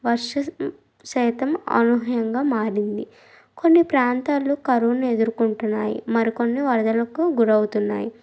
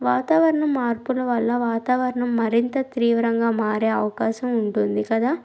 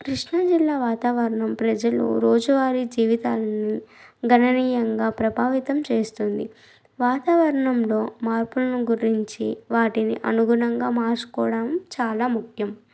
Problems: none marked